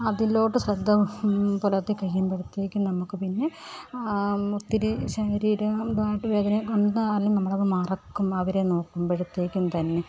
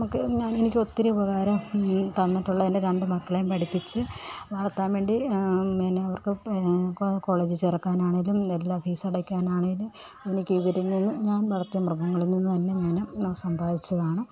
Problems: none marked